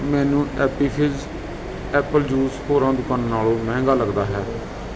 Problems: none marked